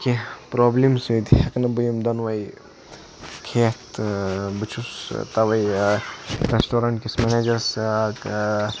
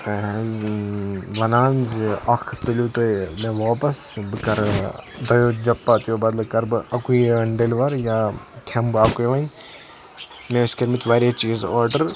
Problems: constant background noise, background conversations at intervals